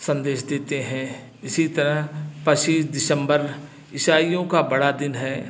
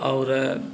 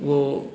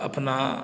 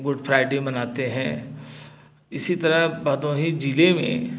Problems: none marked